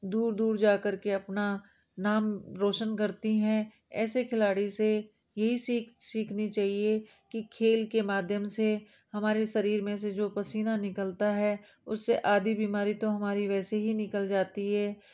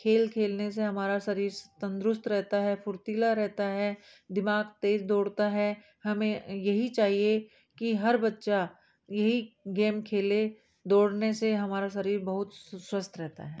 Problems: background sounds at intervals